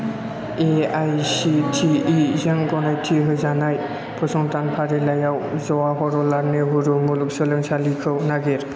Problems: none marked